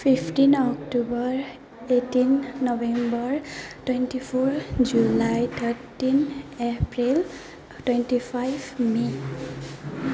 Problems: background sounds at intervals, background conversations at intervals